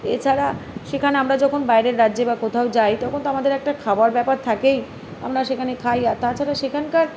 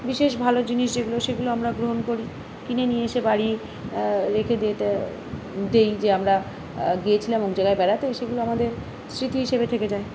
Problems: constant background noise